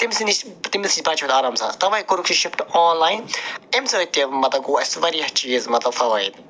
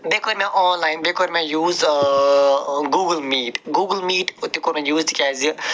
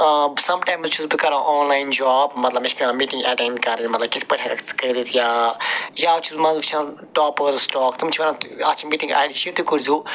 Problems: none marked